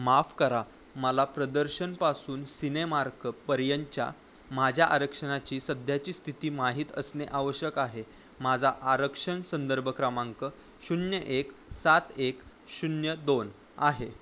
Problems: none marked